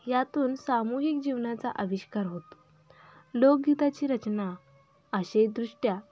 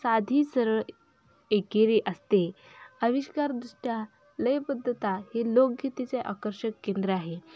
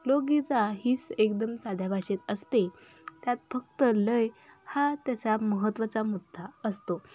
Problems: background sounds at intervals